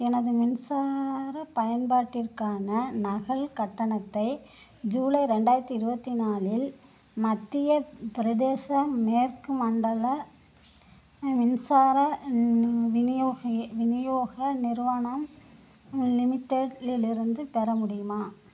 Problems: constant background noise